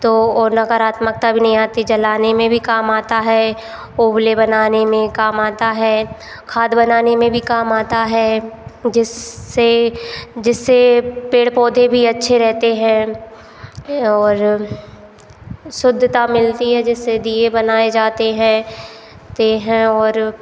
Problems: constant background noise